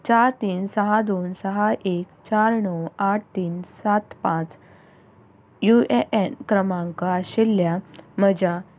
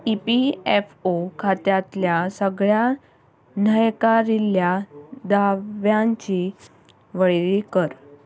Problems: background sounds at intervals